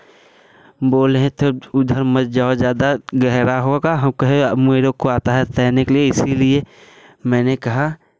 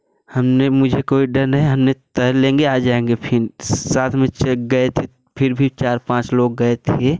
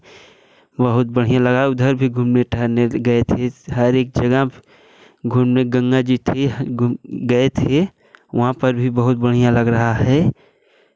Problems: none marked